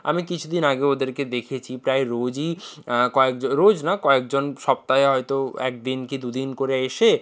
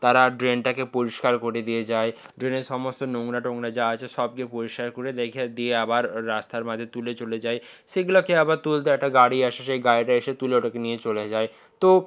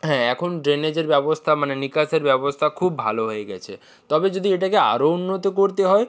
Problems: background sounds at intervals